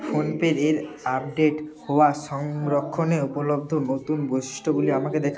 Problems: constant background noise, continuous background conversations